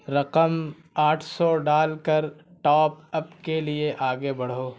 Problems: constant background noise